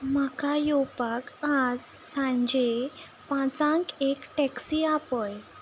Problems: background sounds at intervals